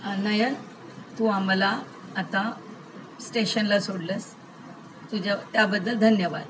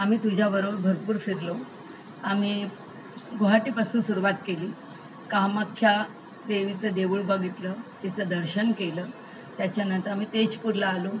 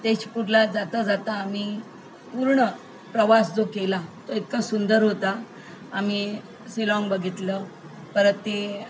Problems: constant background noise